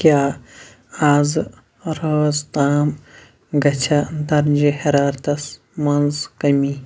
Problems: none marked